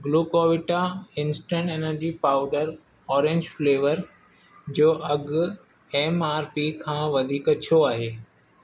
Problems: constant background noise